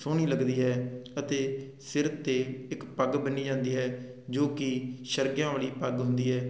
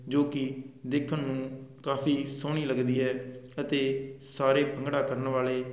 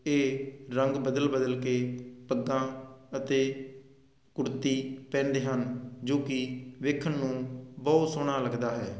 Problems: constant background noise